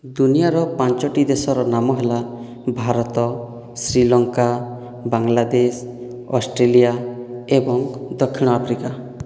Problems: none marked